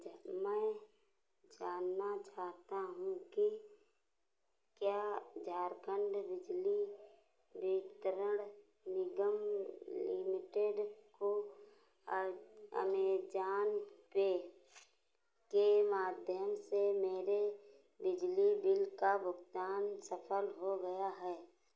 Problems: none marked